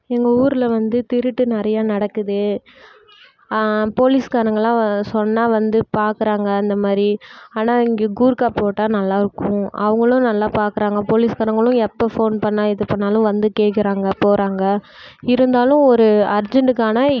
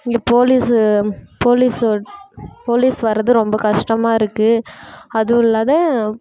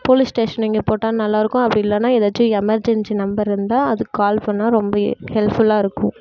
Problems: none marked